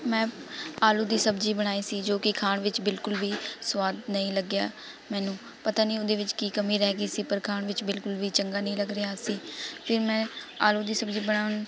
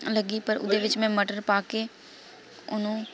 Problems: constant background noise, continuous background conversations